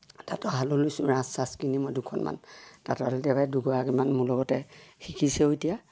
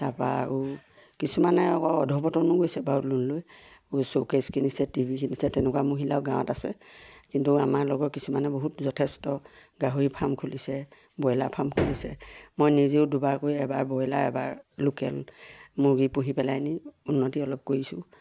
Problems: none marked